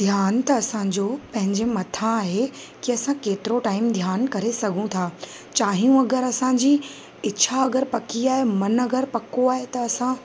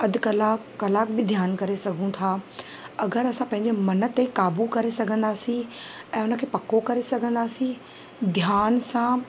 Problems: constant background noise, echo